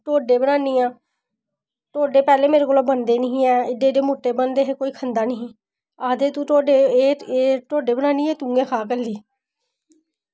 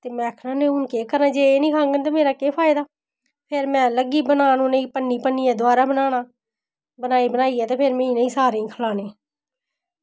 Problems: none marked